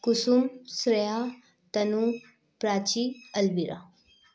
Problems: background sounds at intervals, echo